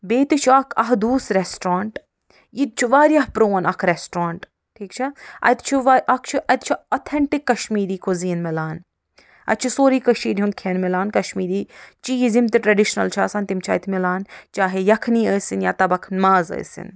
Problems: none marked